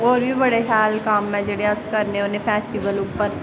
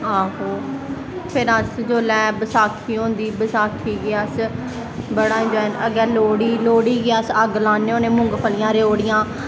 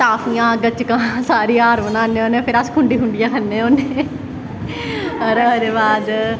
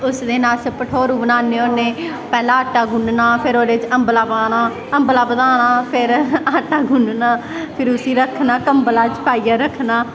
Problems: constant background noise